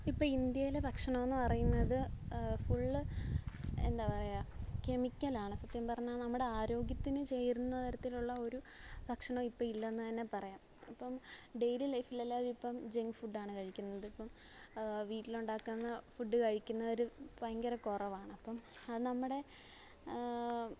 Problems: none marked